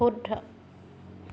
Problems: none marked